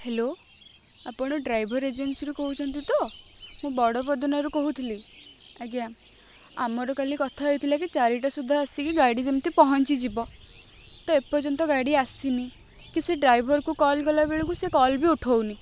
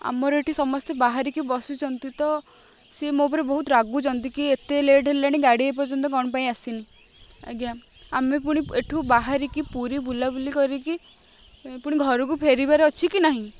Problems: none marked